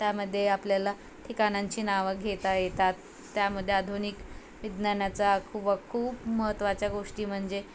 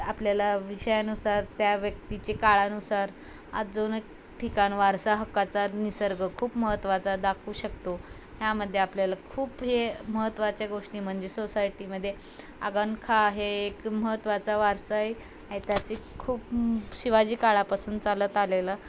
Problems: constant background noise